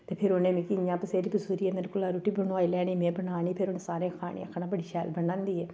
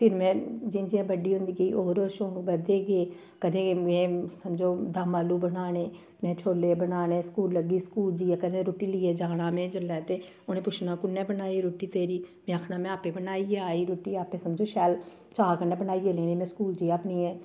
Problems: low volume